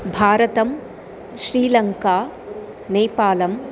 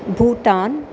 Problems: constant background noise